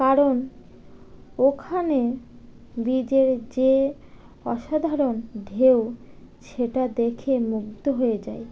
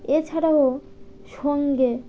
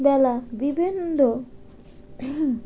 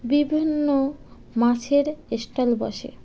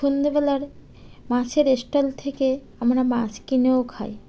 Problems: background sounds at intervals